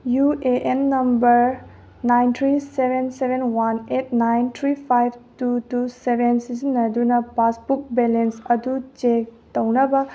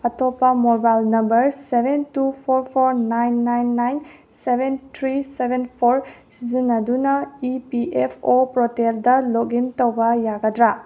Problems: none marked